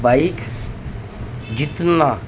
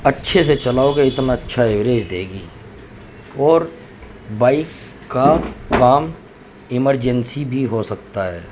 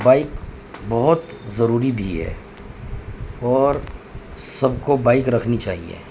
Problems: constant background noise